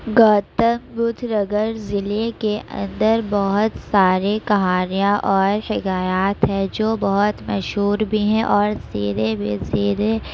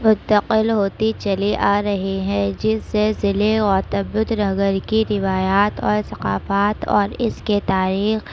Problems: constant background noise